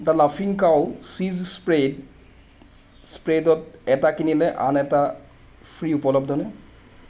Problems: constant background noise